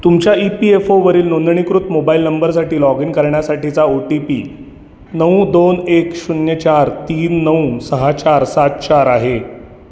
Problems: constant background noise, echo